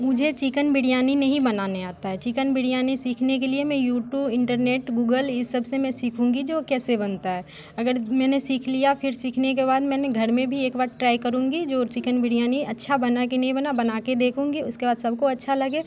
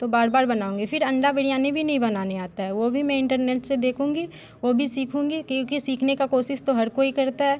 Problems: constant background noise